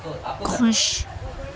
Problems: constant background noise